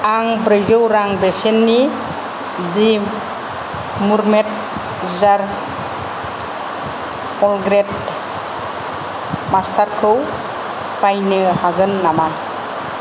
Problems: none marked